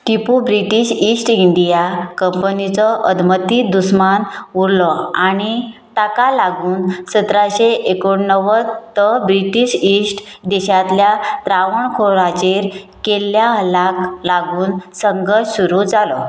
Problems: constant background noise